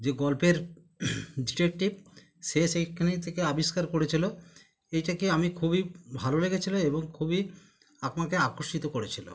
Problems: none marked